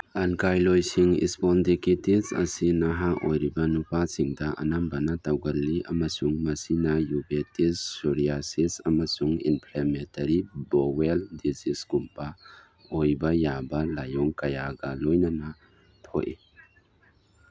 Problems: background sounds at intervals